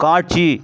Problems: constant background noise